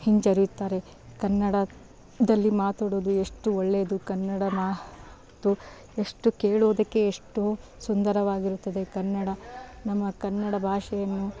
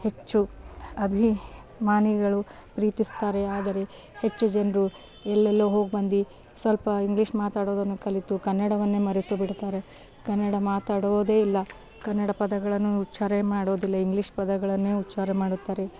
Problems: background sounds at intervals